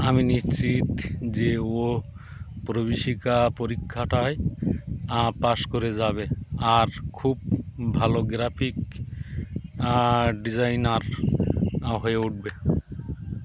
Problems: background sounds at intervals, continuous background conversations